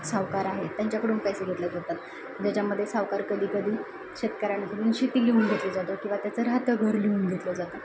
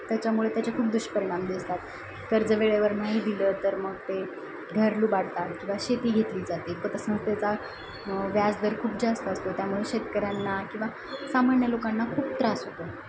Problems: constant background noise, continuous background conversations